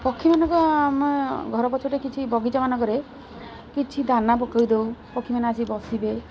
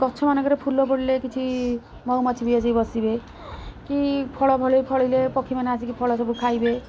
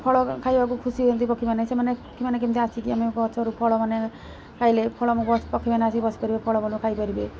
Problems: constant background noise